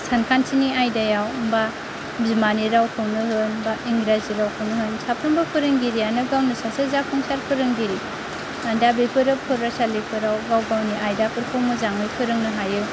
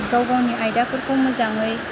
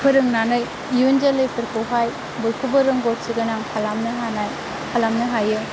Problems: constant background noise, low volume